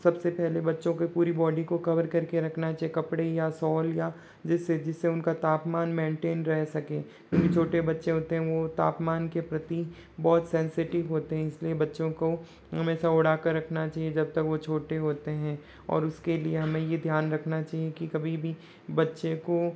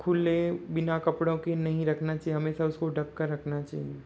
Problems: background sounds at intervals